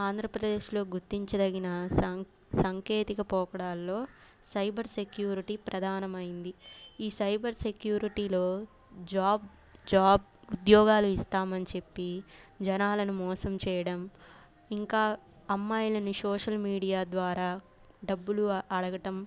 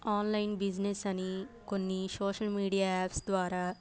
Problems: background sounds at intervals